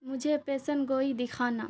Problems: constant background noise